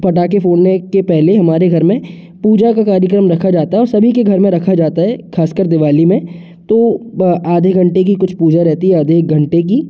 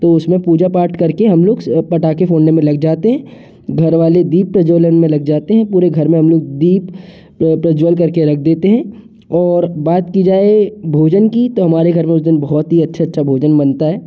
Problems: constant background noise